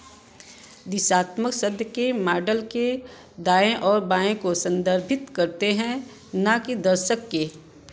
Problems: constant background noise